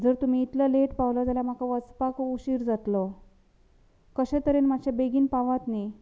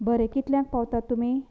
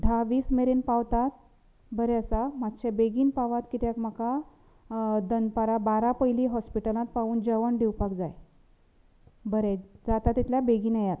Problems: background conversations at intervals